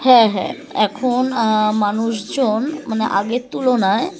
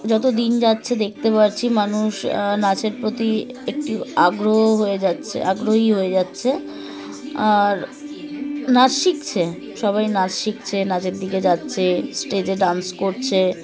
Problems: constant background noise